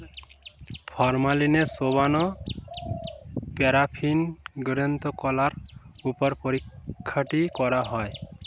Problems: constant background noise